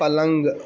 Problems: constant background noise